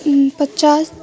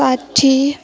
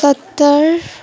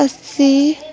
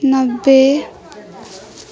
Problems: continuous background conversations